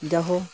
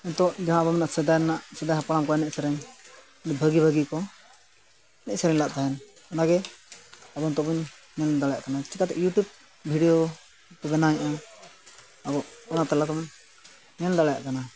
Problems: constant background noise